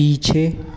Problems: constant background noise